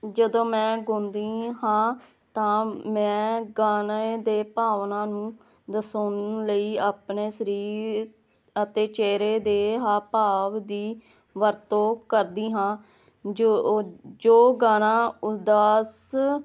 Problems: none marked